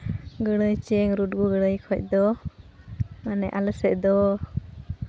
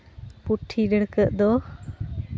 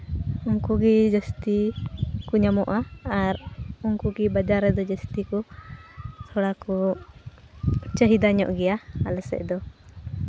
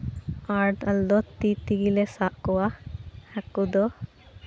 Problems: constant background noise